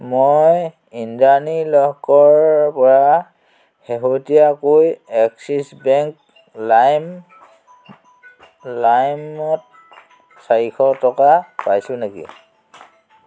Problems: constant background noise